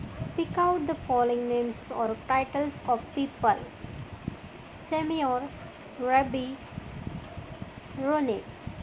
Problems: constant background noise